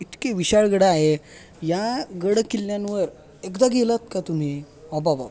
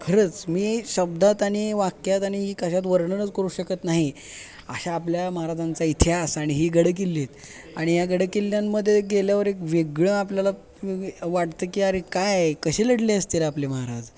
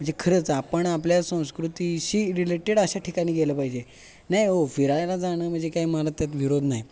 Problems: constant background noise